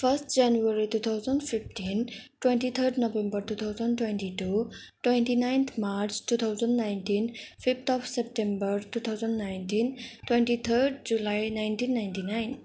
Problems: background sounds at intervals